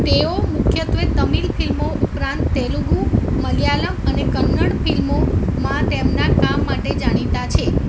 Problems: constant background noise